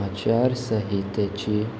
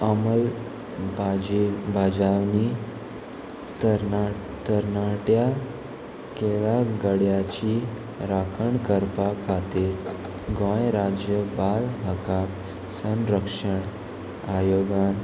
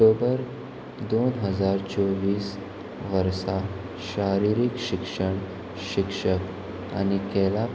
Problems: constant background noise